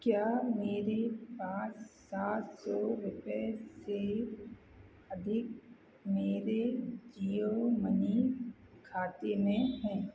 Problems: low volume